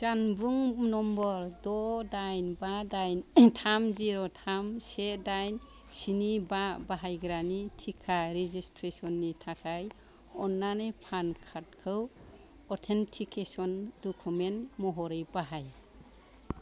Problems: none marked